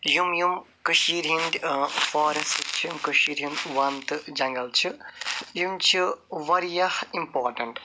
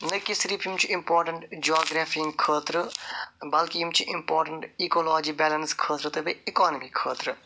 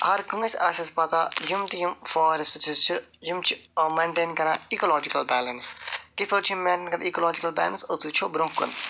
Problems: none marked